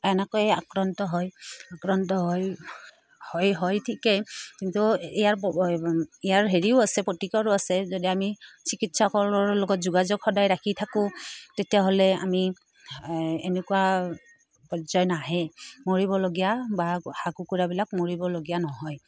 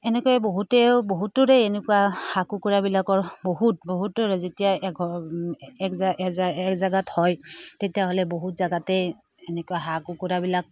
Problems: none marked